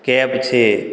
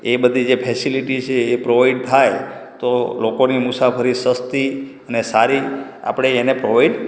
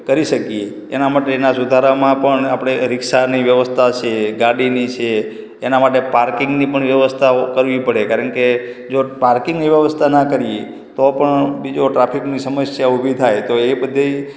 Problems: echo